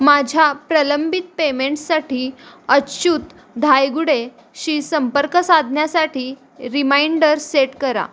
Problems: constant background noise